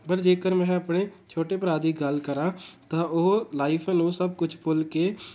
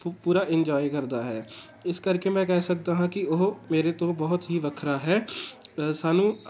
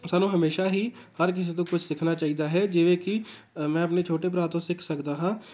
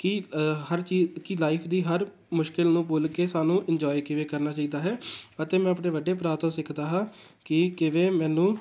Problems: constant background noise